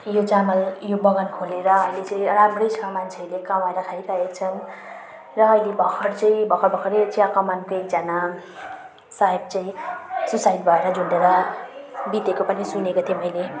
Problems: background sounds at intervals